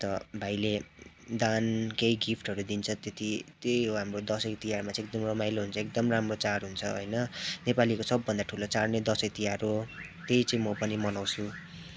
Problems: constant background noise